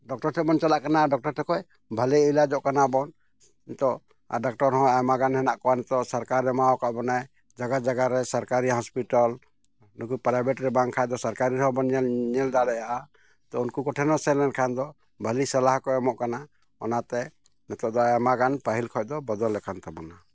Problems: none marked